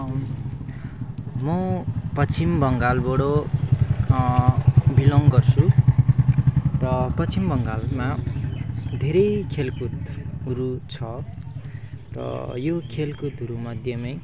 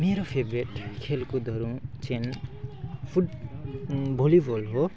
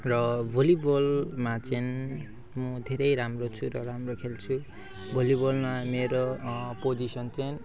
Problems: background sounds at intervals